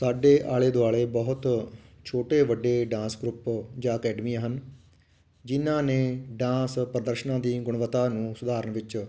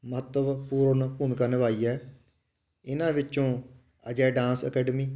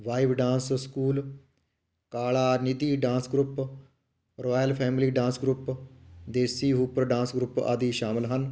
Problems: none marked